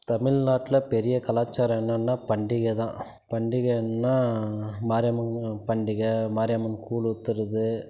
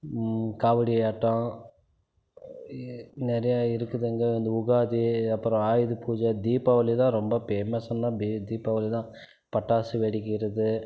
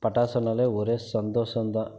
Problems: none marked